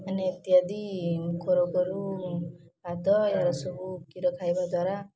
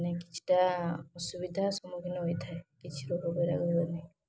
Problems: constant background noise, continuous background conversations